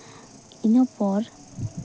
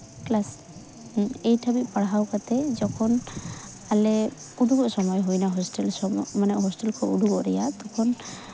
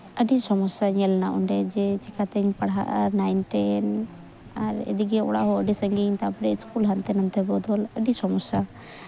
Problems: constant background noise, background conversations at intervals